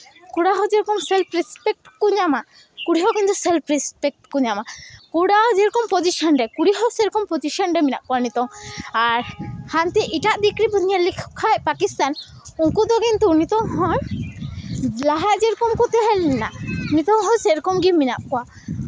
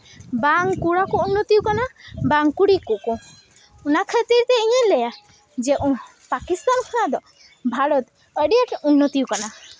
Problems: background sounds at intervals